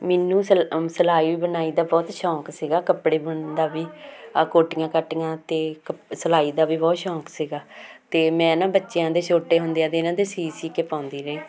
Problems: none marked